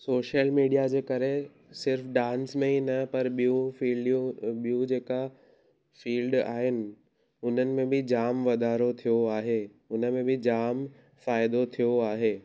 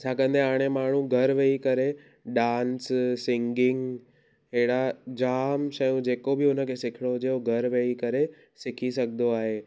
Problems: none marked